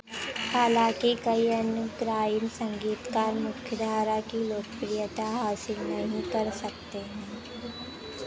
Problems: background sounds at intervals